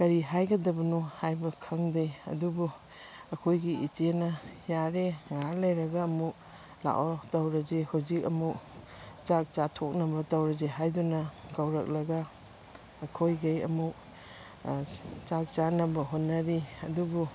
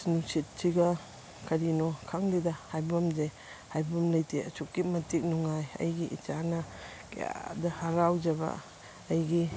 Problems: constant background noise